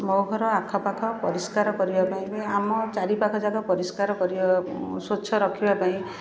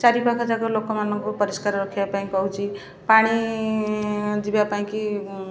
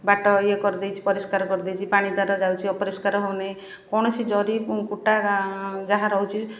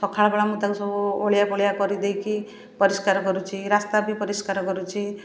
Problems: constant background noise, continuous background conversations